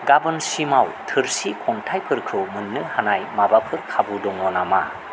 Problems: constant background noise